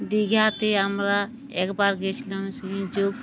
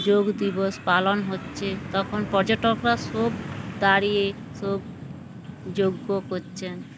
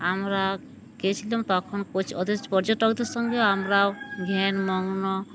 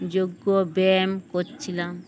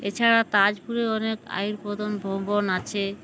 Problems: constant background noise, background conversations at intervals